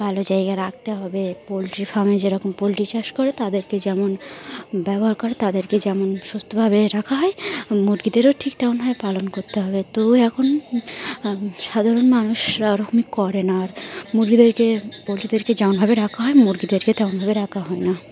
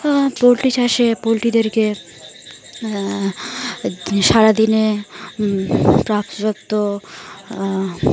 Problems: none marked